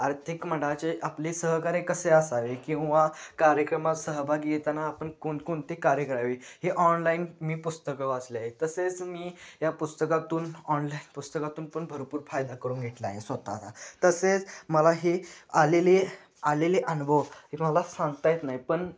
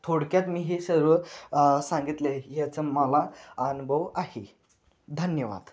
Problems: constant background noise, background conversations at intervals